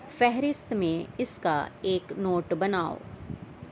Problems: constant background noise